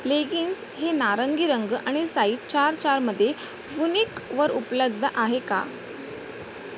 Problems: constant background noise